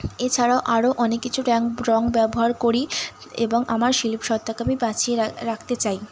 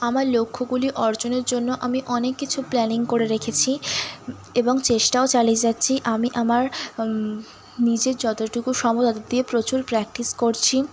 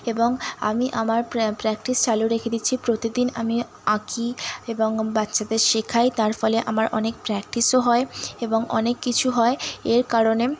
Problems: constant background noise